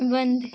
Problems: constant background noise